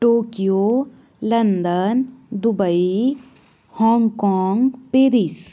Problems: background sounds at intervals